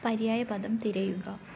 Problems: none marked